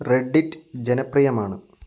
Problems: none marked